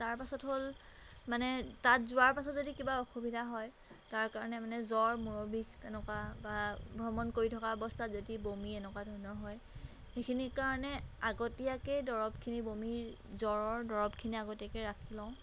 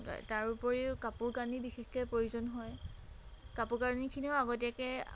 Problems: background sounds at intervals